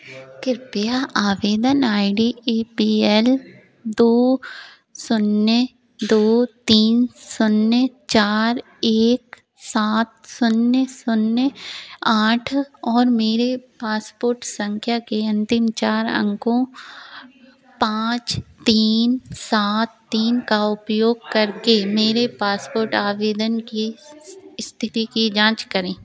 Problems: none marked